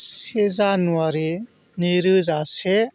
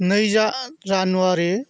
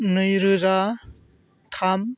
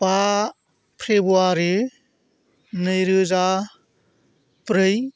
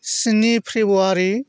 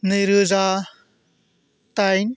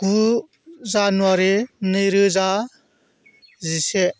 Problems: none marked